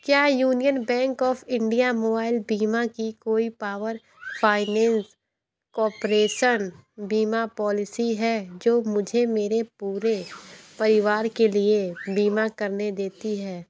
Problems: constant background noise, continuous background conversations